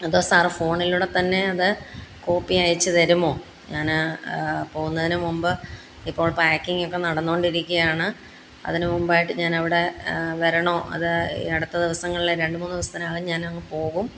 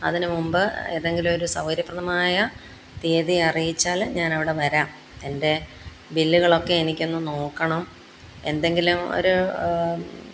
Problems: background sounds at intervals